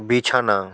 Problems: constant background noise